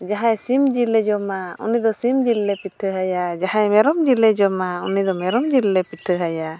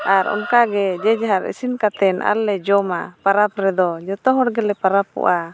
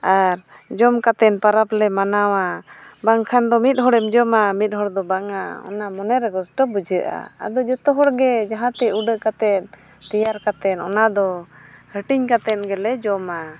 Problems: background sounds at intervals